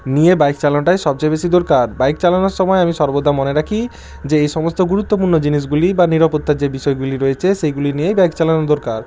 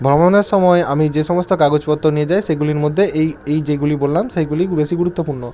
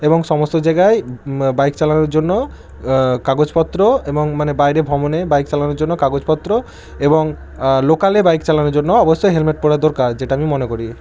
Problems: none marked